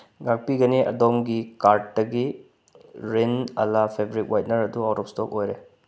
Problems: none marked